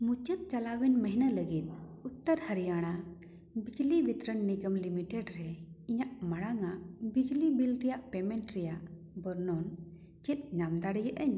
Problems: echo